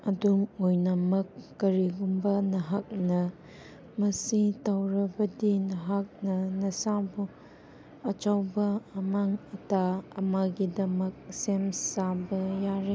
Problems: constant background noise